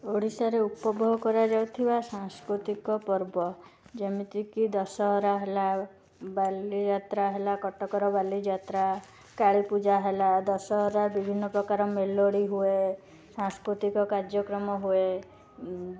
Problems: constant background noise